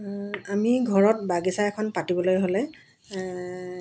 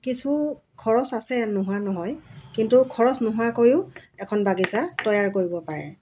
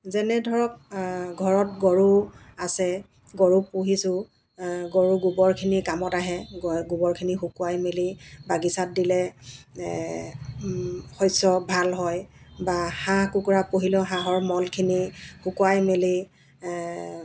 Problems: none marked